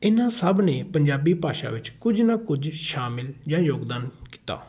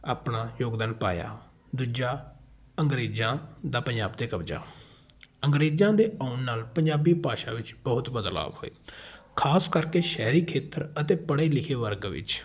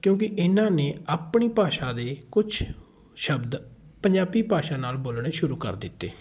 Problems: background sounds at intervals, continuous background conversations